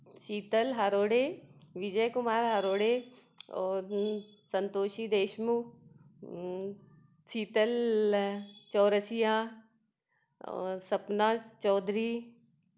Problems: none marked